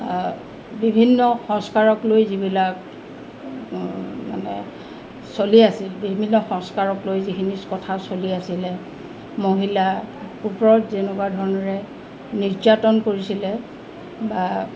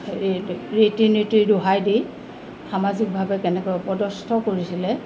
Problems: constant background noise